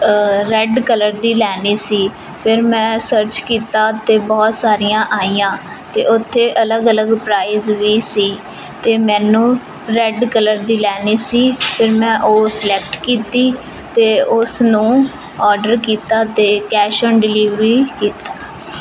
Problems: constant background noise